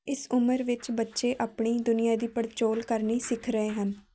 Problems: background sounds at intervals